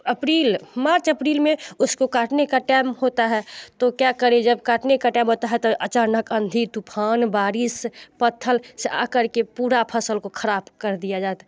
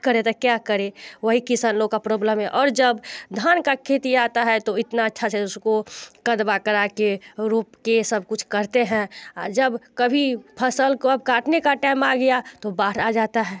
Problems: constant background noise